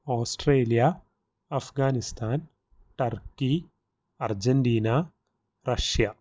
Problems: none marked